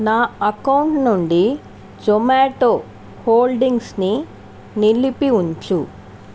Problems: constant background noise